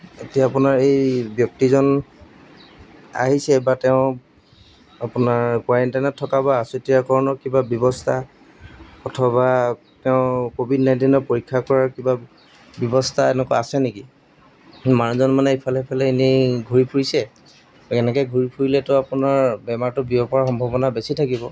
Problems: none marked